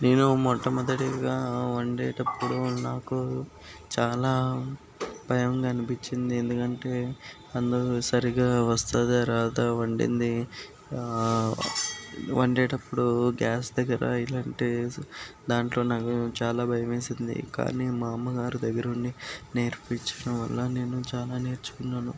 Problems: background sounds at intervals